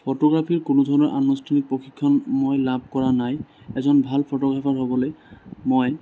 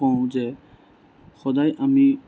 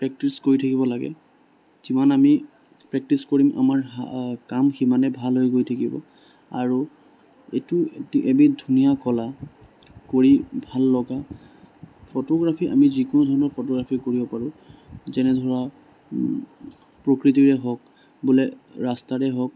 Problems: constant background noise